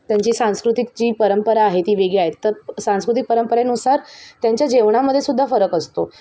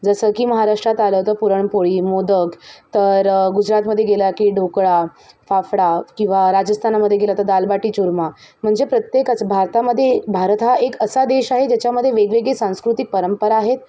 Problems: background sounds at intervals, background conversations at intervals